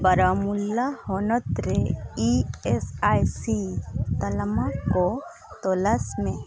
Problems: background sounds at intervals, background conversations at intervals